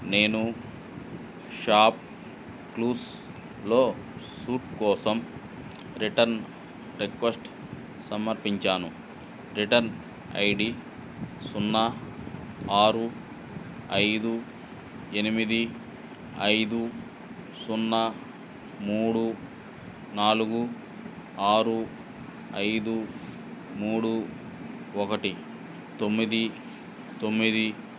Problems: none marked